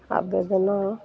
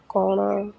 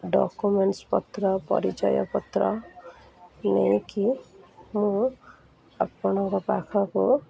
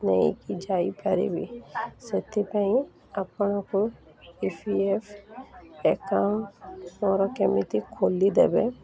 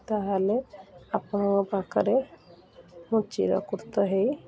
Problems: constant background noise, continuous background conversations